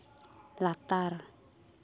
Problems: constant background noise